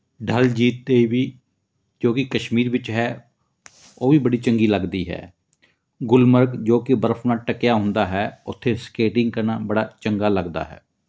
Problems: none marked